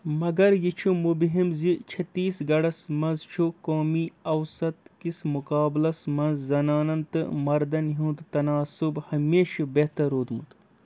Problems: background sounds at intervals